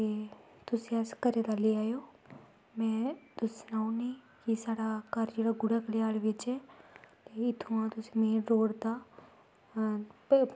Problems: background sounds at intervals